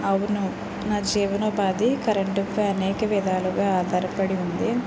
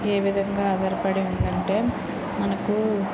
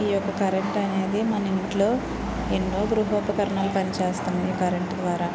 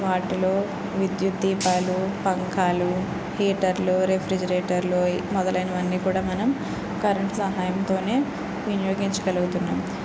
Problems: background sounds at intervals